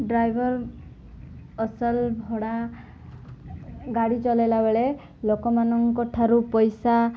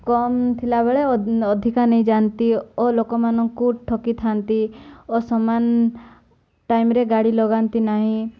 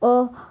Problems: none marked